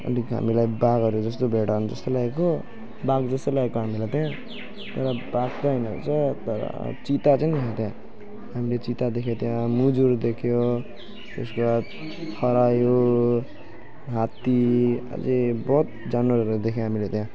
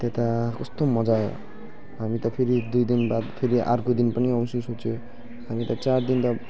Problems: background sounds at intervals